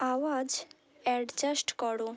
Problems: none marked